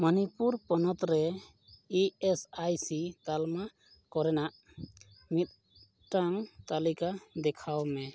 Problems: none marked